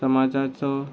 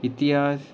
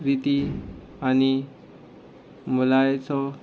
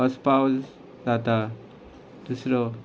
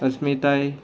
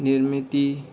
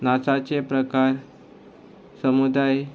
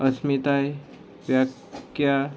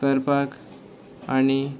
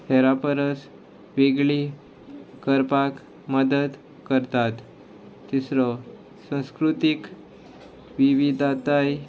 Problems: none marked